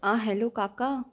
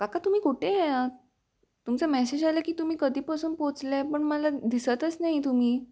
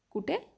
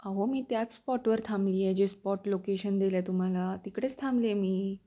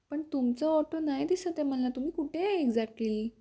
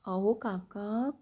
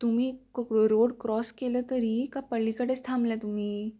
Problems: constant background noise